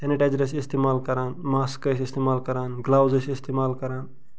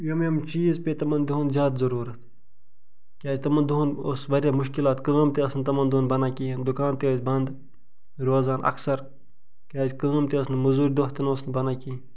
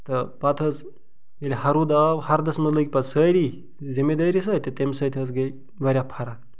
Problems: background sounds at intervals